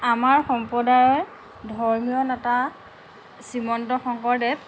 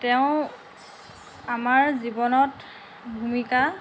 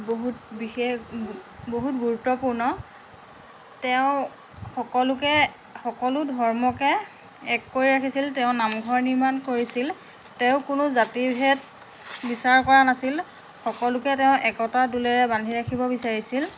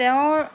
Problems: constant background noise